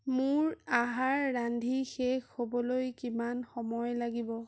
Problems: none marked